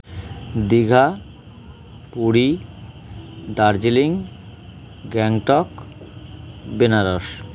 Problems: constant background noise